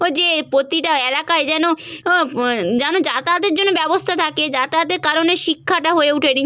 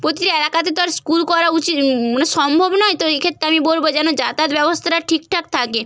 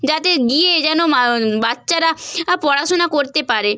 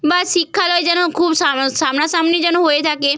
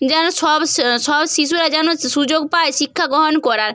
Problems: none marked